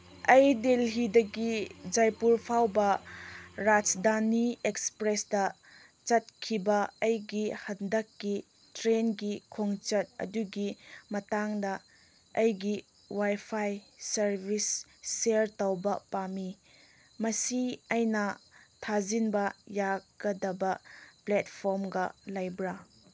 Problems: none marked